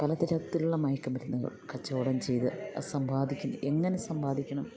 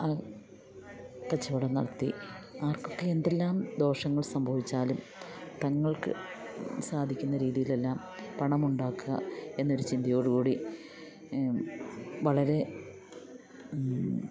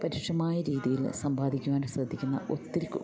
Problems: continuous background conversations